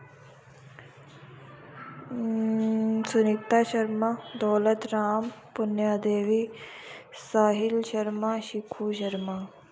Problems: none marked